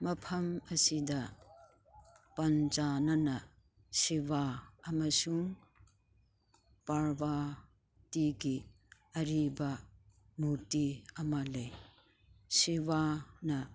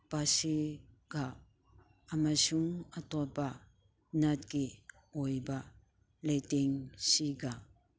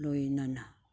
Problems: none marked